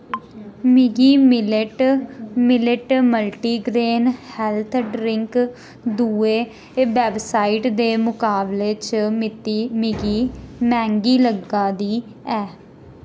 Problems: constant background noise